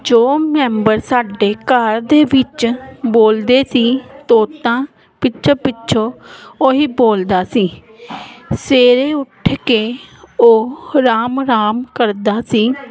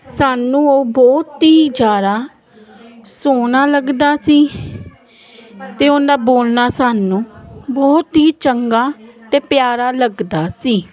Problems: none marked